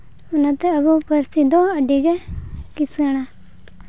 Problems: background sounds at intervals